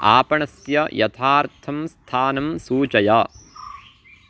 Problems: background sounds at intervals